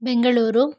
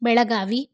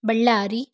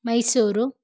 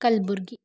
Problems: none marked